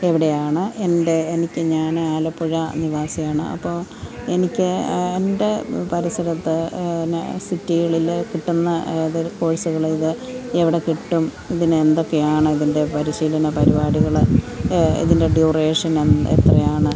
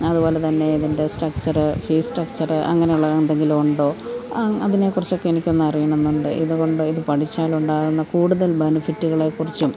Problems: constant background noise